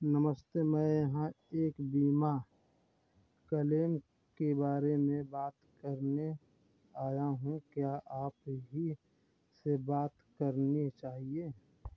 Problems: none marked